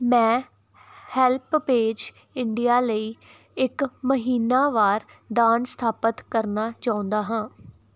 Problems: none marked